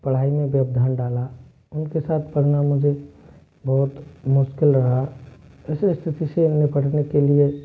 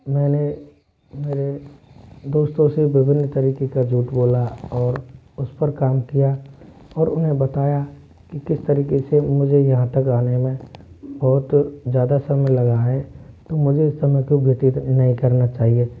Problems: constant background noise